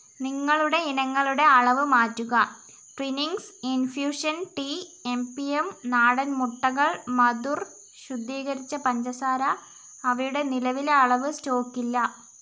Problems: constant background noise